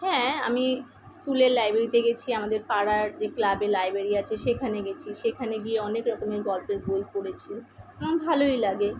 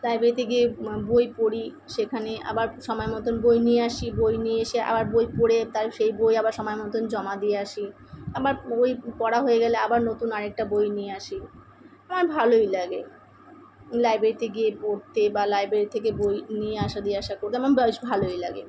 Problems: none marked